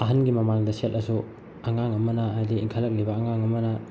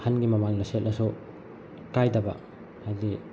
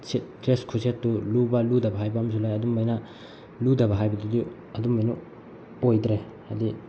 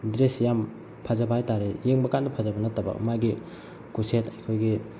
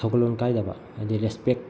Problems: constant background noise